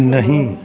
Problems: constant background noise